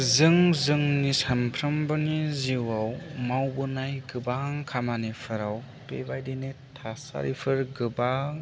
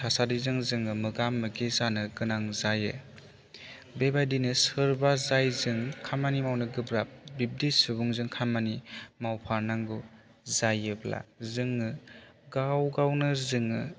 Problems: none marked